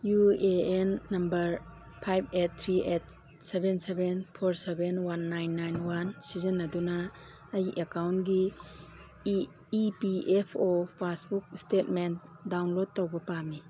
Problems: background sounds at intervals